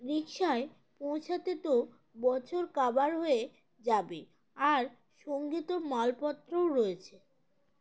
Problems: none marked